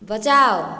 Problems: none marked